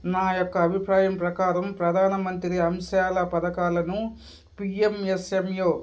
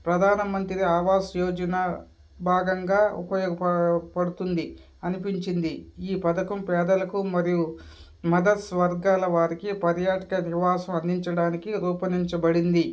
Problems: background sounds at intervals, background conversations at intervals